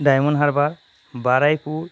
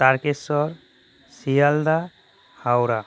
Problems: none marked